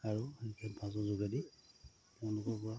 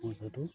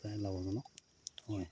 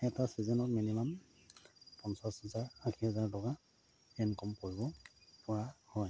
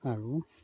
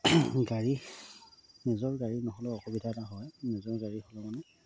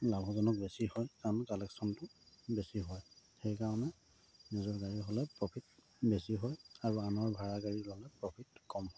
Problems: constant background noise, low volume